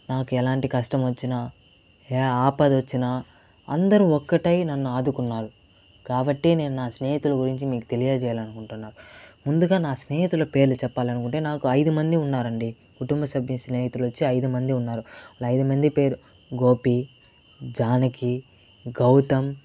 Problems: constant background noise